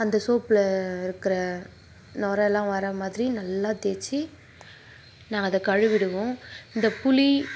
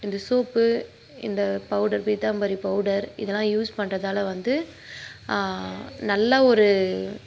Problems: none marked